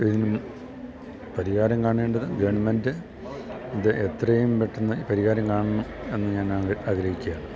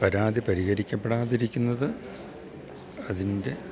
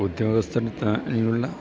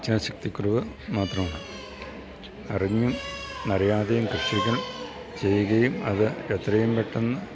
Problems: continuous background conversations, low volume